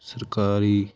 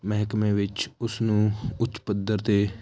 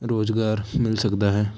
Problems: constant background noise